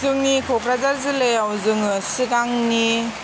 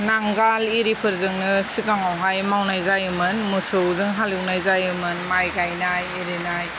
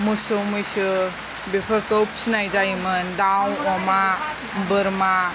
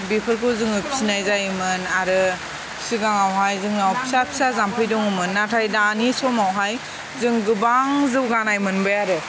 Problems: constant background noise